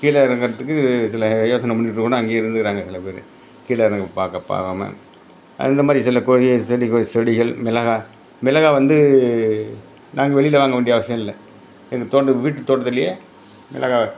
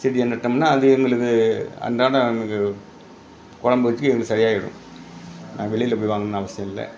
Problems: none marked